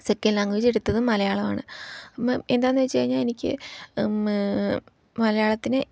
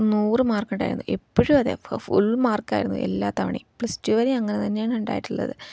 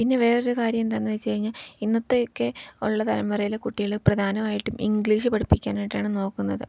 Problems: low volume